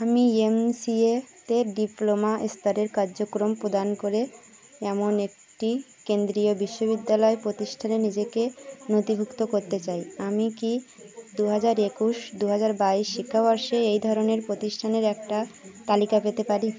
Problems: none marked